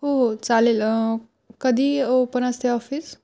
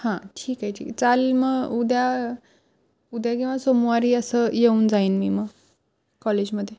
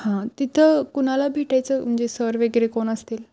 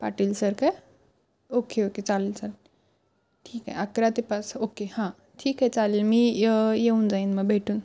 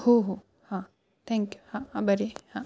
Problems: constant background noise